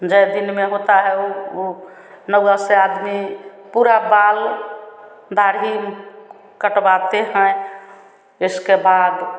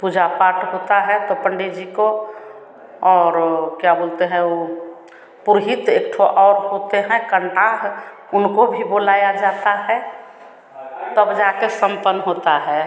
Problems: none marked